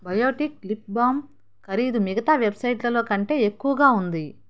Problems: none marked